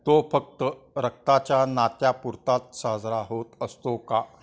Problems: none marked